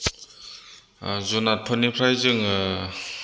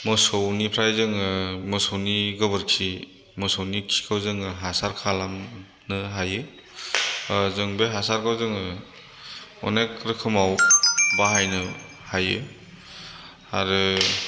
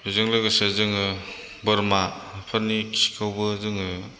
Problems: background sounds at intervals